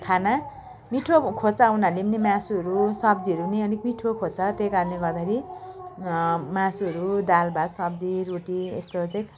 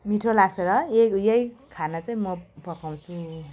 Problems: continuous background conversations